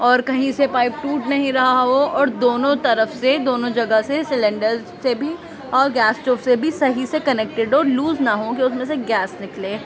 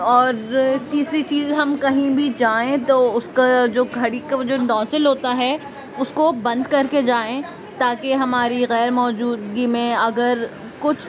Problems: constant background noise